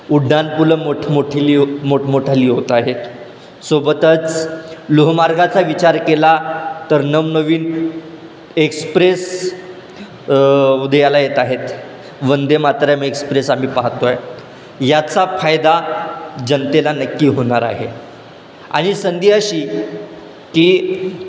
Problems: constant background noise, background conversations at intervals